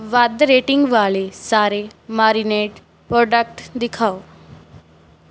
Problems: background sounds at intervals